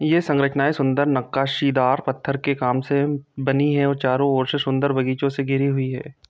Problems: none marked